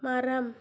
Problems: low volume